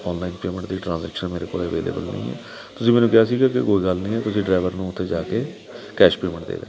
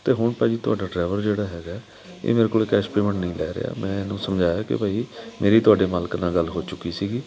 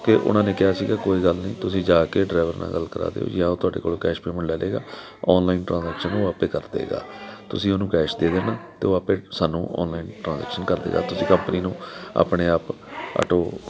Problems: continuous background conversations